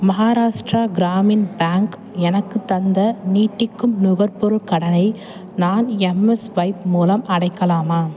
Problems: constant background noise